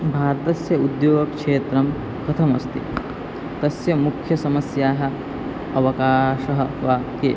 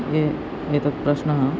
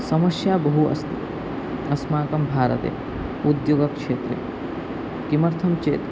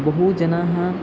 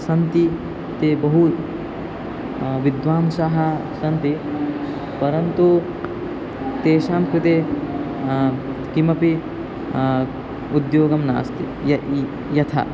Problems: constant background noise